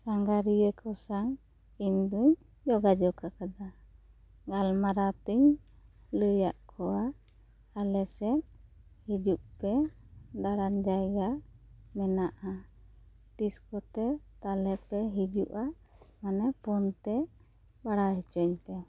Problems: none marked